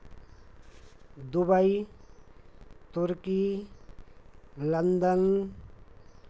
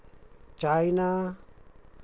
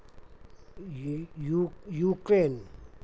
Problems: constant background noise, background conversations at intervals